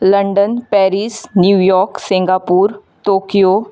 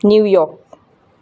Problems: constant background noise